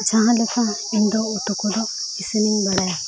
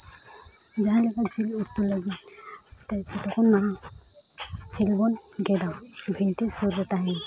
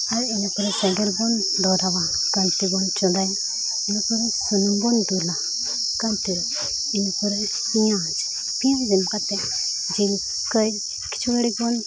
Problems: constant background noise